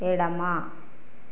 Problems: constant background noise